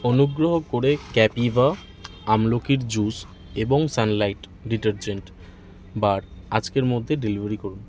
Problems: constant background noise, continuous background conversations